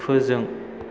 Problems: constant background noise